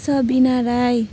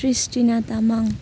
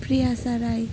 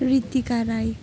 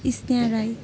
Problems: background sounds at intervals